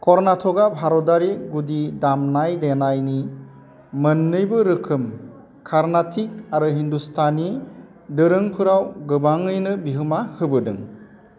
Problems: constant background noise